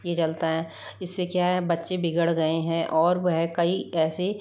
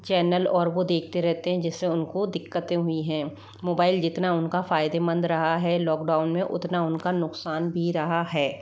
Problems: none marked